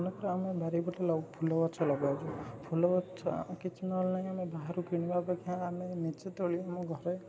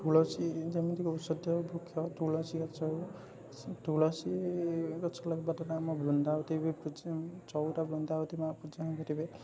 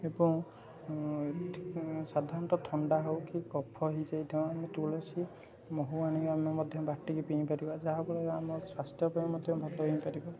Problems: constant background noise, continuous background conversations